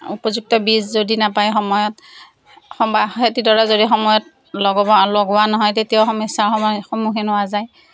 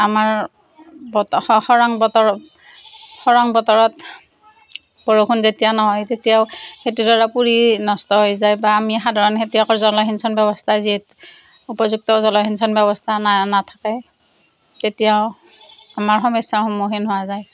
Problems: none marked